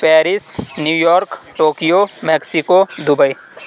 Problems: constant background noise